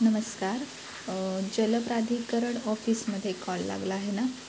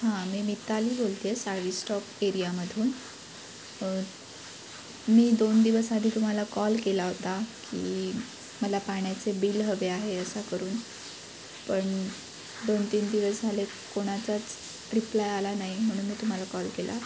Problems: none marked